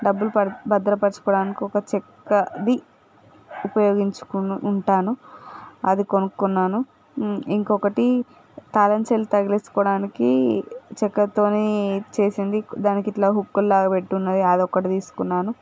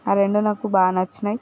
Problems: background sounds at intervals